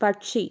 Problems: none marked